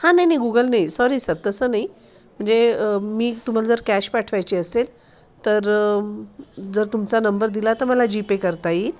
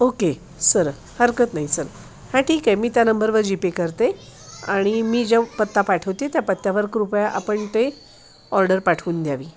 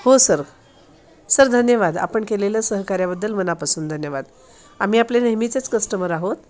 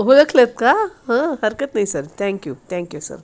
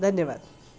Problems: constant background noise, continuous background conversations